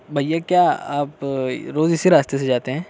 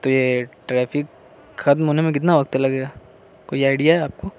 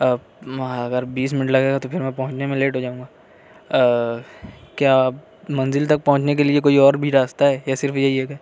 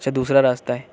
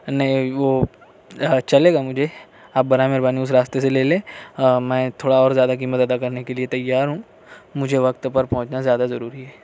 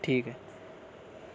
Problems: none marked